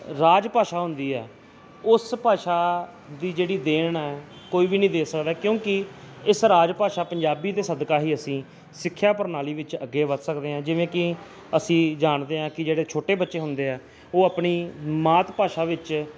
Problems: none marked